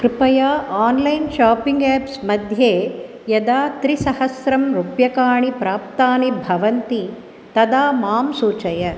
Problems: constant background noise